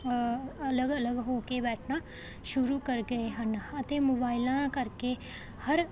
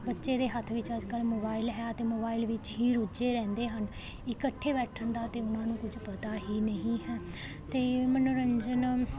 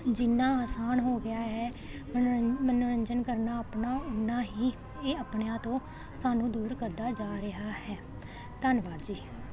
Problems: none marked